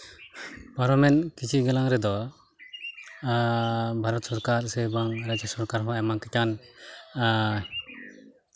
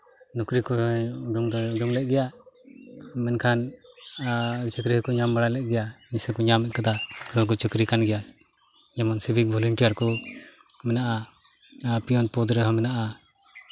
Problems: background sounds at intervals, background conversations at intervals